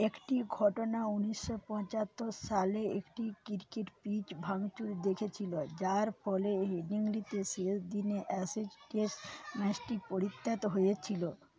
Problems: background conversations at intervals